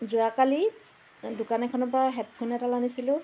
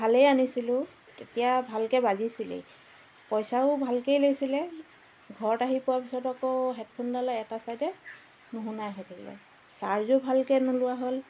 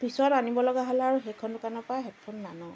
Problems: constant background noise, background conversations at intervals